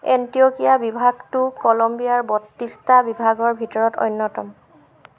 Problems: none marked